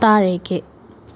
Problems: none marked